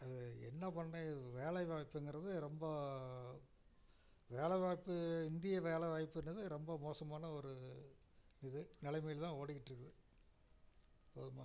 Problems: low volume